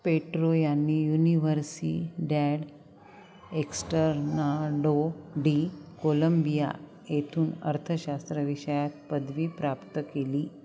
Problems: none marked